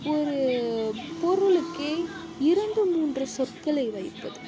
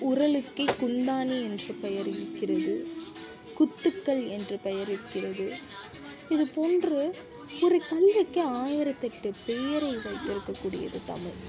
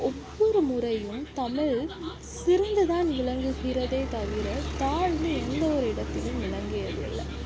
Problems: background sounds at intervals